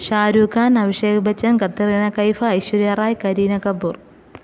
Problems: none marked